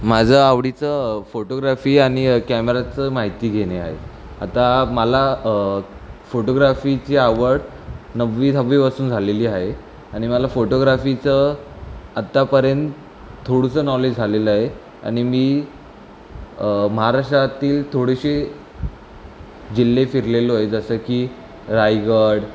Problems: constant background noise